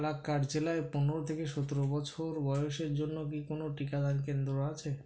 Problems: constant background noise